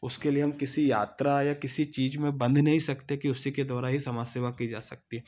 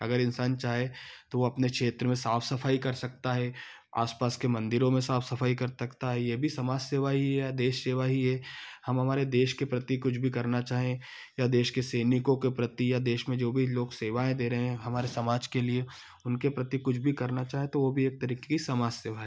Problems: background sounds at intervals